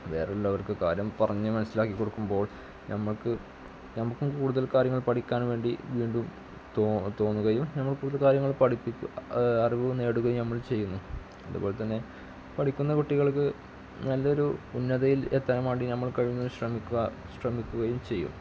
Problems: background sounds at intervals, low volume